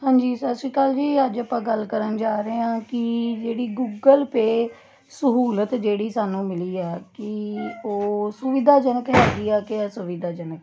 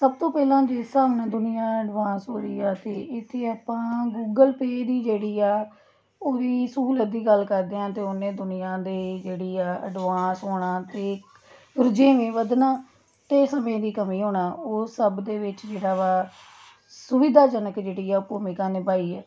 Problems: continuous background conversations